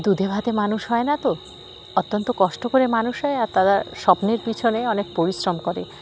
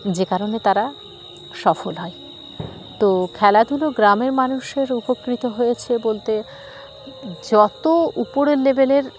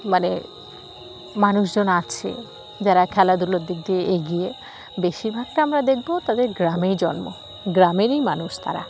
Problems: constant background noise